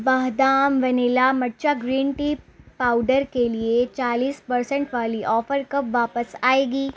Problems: none marked